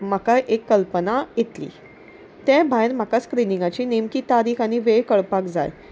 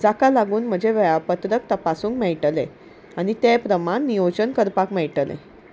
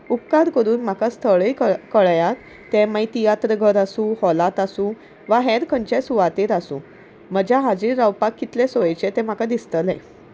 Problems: none marked